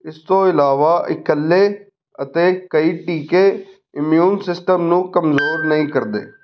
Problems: background sounds at intervals